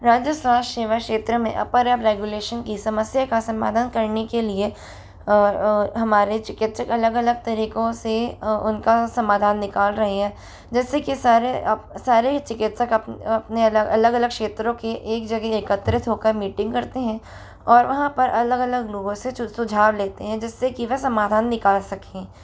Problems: none marked